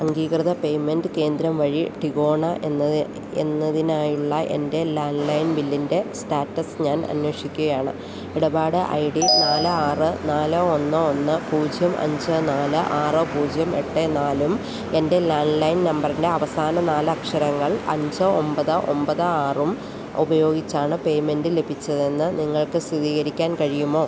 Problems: constant background noise